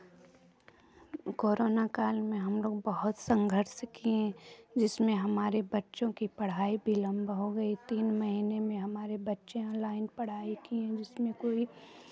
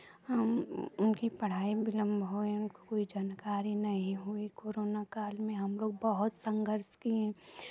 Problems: background sounds at intervals